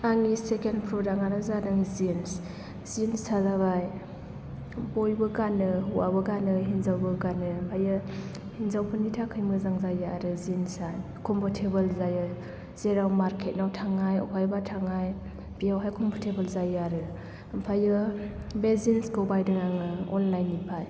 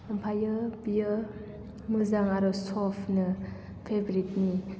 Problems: echo